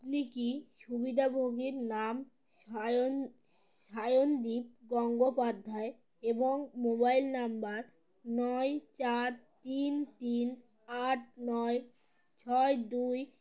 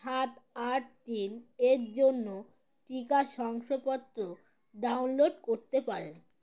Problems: none marked